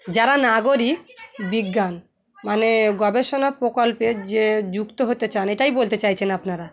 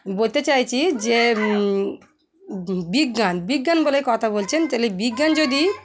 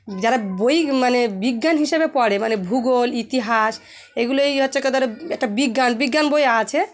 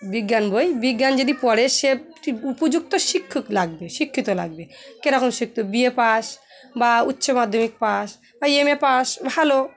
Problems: none marked